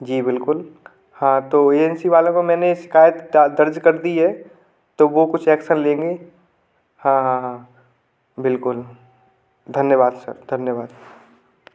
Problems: background sounds at intervals